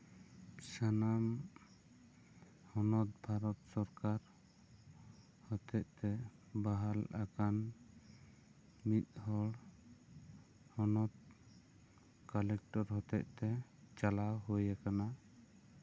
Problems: low volume